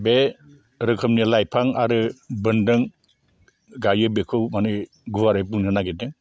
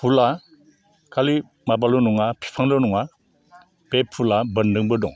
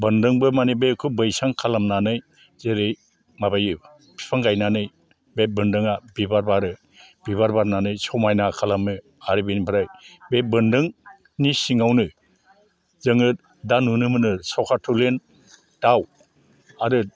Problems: low volume